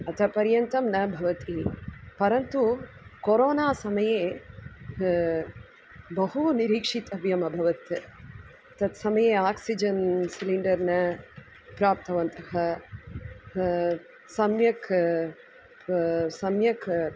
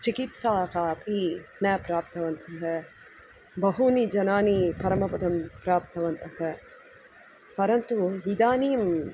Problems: none marked